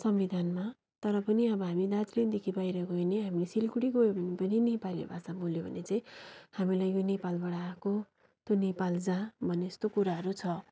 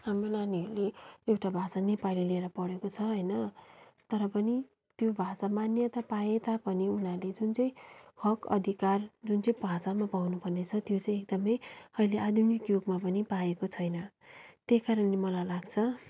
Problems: none marked